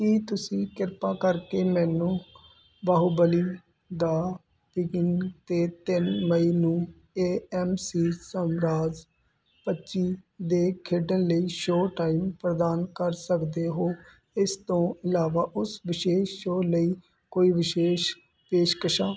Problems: constant background noise